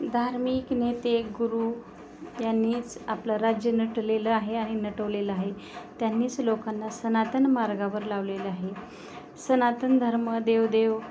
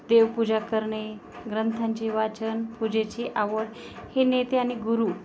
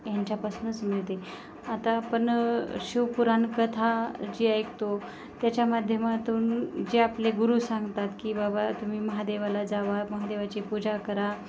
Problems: constant background noise, background conversations at intervals